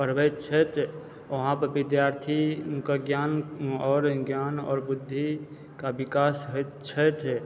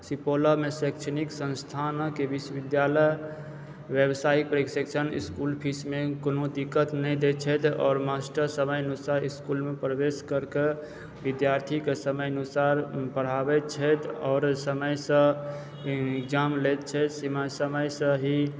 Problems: background sounds at intervals